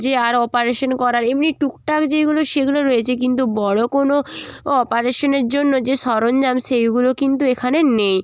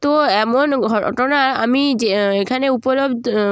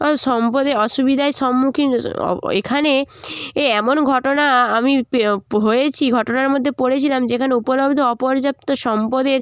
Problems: none marked